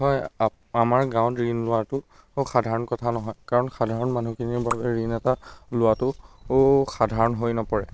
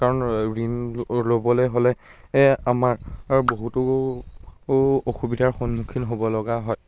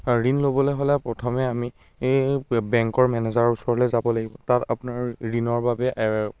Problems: constant background noise